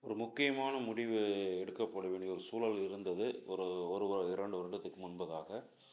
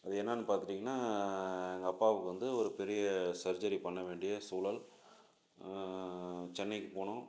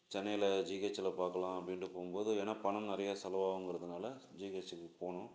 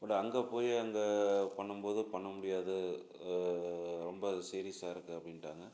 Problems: low volume